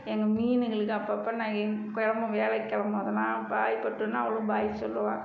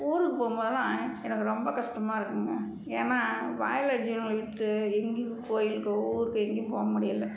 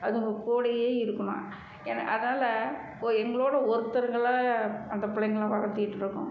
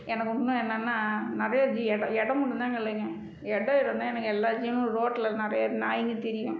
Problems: background conversations at intervals